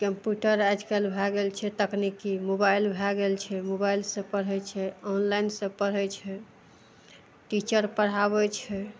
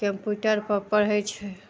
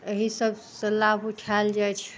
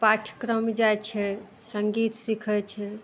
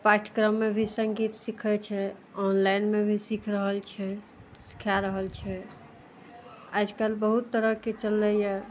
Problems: none marked